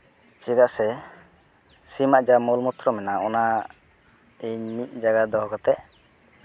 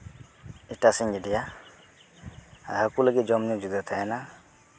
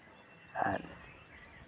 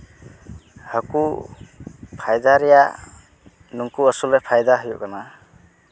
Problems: none marked